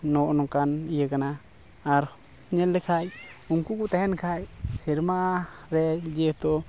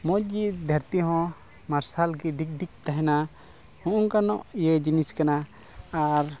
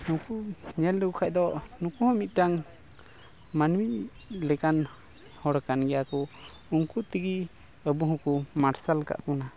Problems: background sounds at intervals